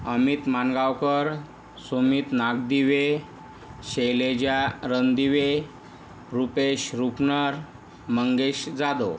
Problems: none marked